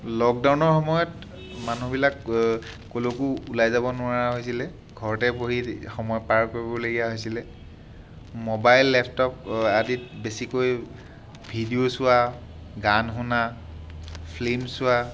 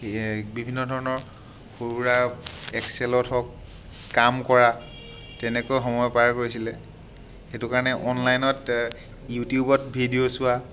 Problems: constant background noise